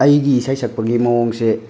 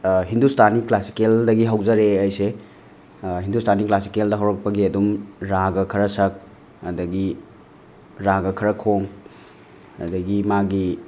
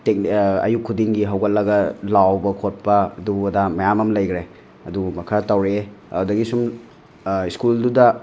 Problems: none marked